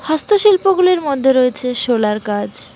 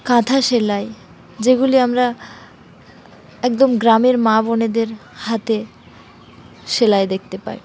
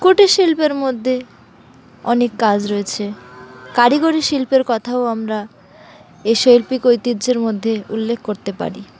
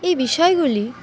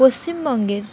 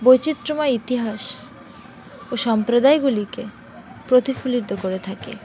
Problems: constant background noise, continuous background conversations